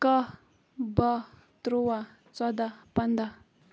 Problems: none marked